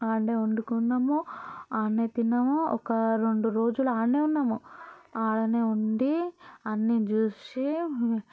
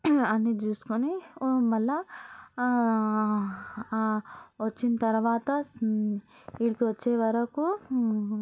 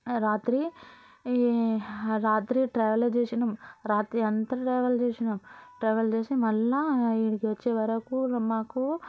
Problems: continuous background conversations